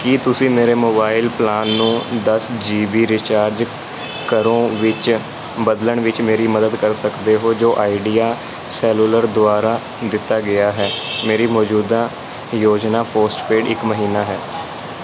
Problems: none marked